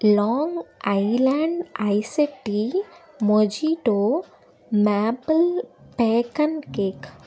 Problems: none marked